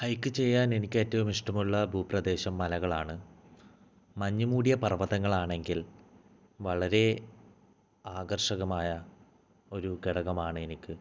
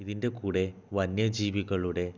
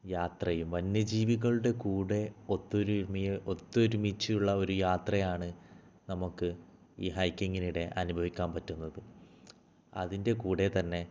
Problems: low volume